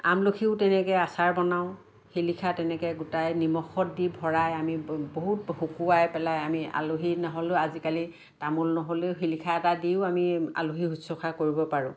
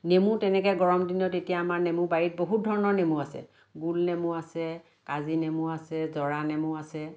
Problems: constant background noise